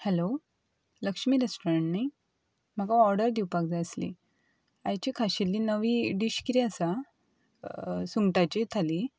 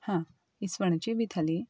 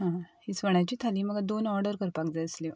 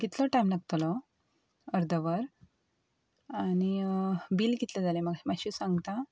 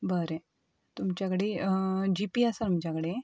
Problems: none marked